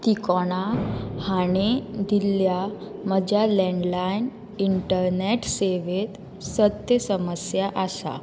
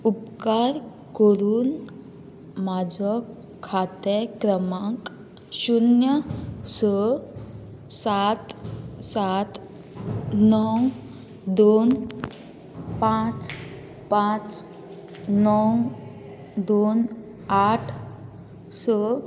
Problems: constant background noise